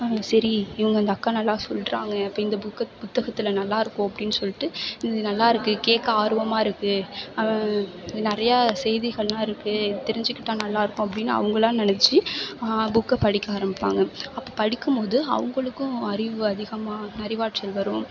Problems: none marked